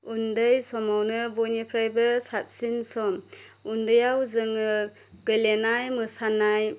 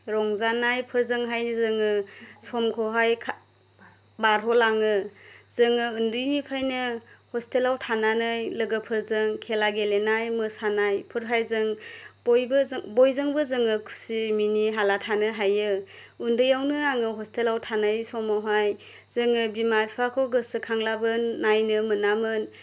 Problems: none marked